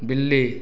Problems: none marked